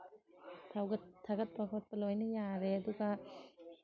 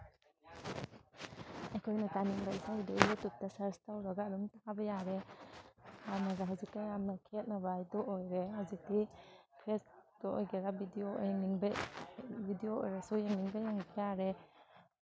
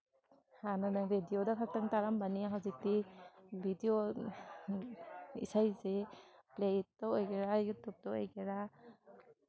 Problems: background sounds at intervals, background conversations at intervals